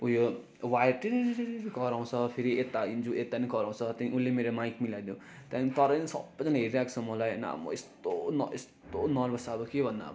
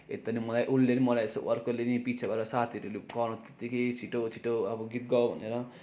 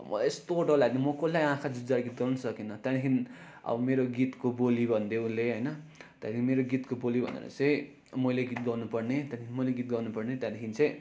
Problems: background conversations at intervals